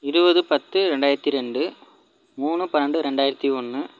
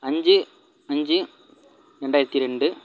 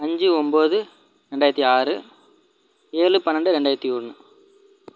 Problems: low volume